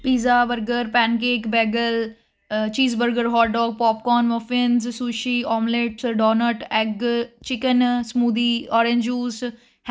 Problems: constant background noise